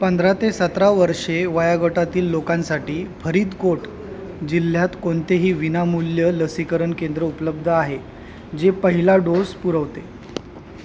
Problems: constant background noise